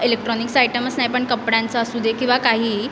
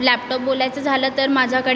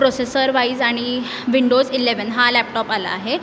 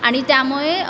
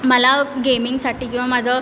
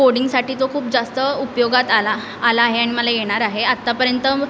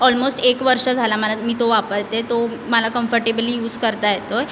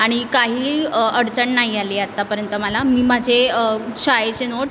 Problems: constant background noise